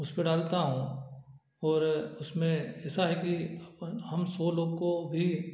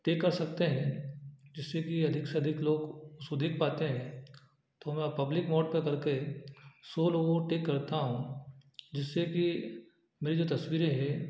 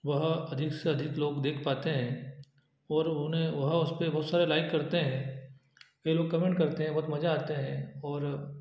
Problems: none marked